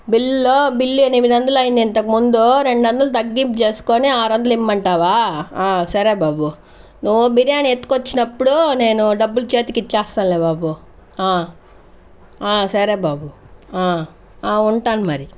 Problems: none marked